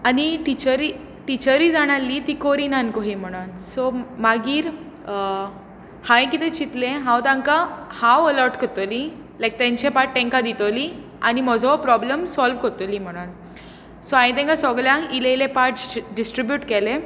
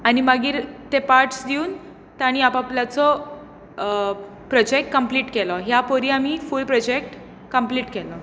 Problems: constant background noise